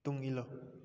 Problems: low volume